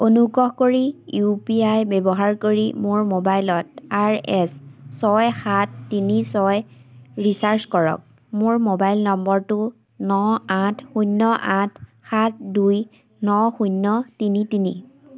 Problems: constant background noise